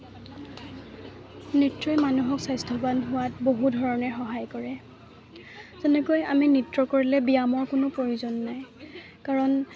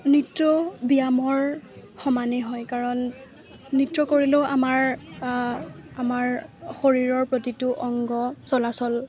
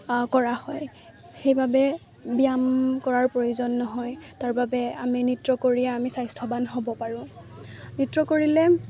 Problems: none marked